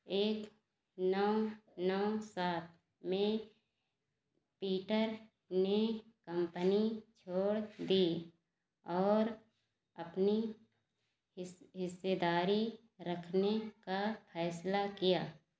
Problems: none marked